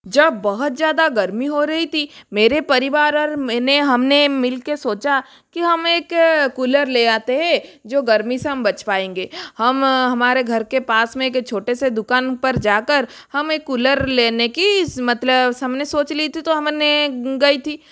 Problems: constant background noise